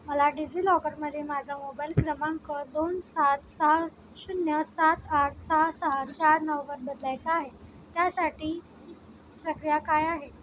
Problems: background sounds at intervals